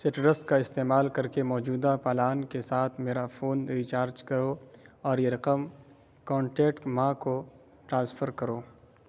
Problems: constant background noise